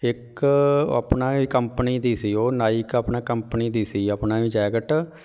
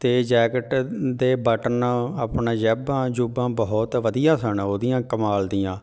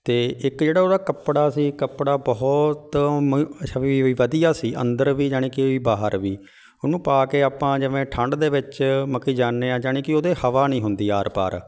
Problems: background sounds at intervals